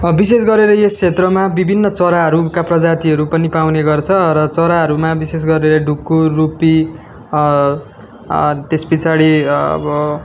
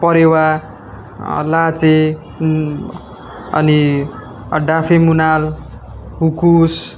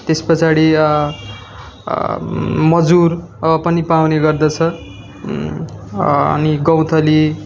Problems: constant background noise